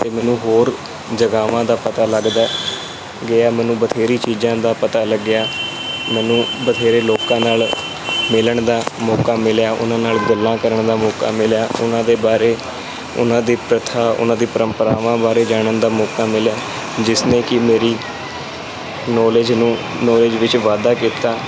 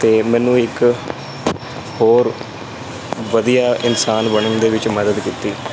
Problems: constant background noise